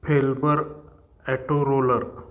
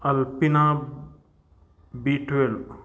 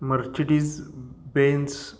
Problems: constant background noise